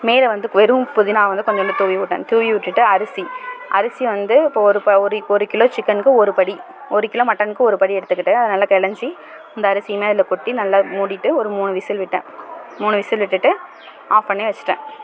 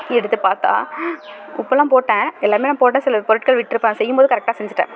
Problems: constant background noise